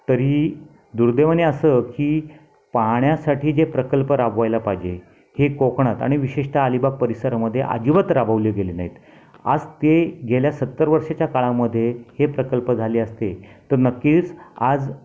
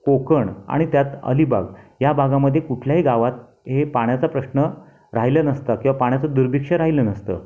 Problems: background sounds at intervals, background conversations at intervals